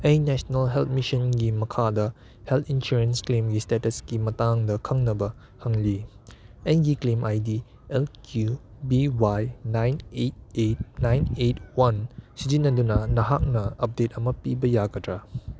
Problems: background sounds at intervals